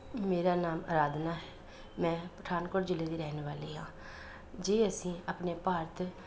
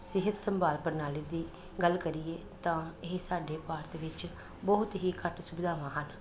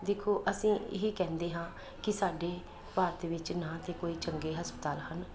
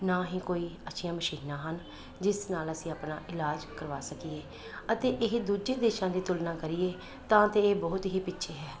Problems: constant background noise